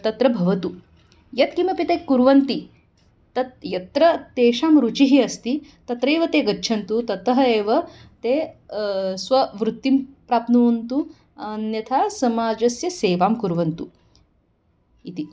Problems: background sounds at intervals